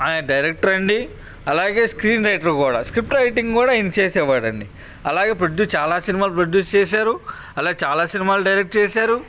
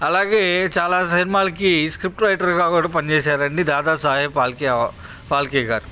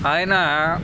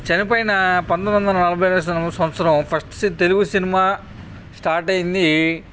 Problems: none marked